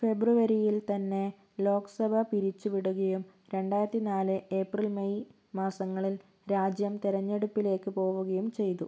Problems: none marked